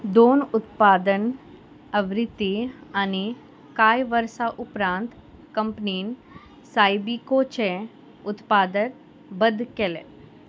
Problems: constant background noise